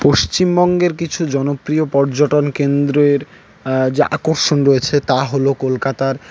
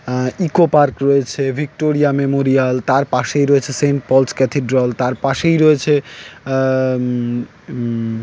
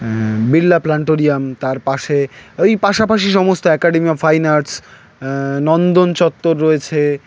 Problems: none marked